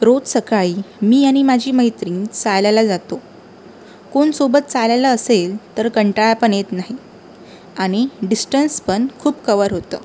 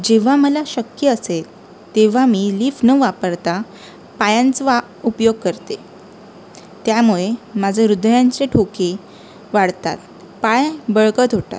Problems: background sounds at intervals